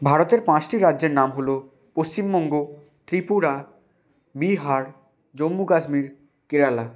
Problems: constant background noise